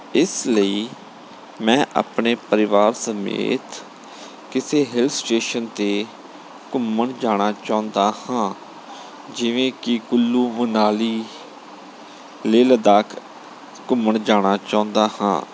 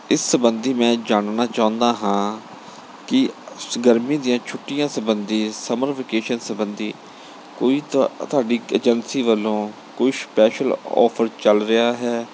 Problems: none marked